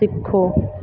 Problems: background sounds at intervals